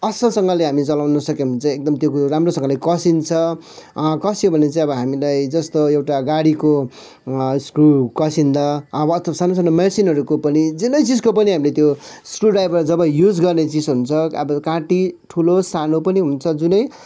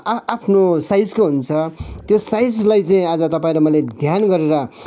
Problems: none marked